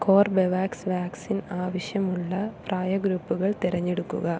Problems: background sounds at intervals, low volume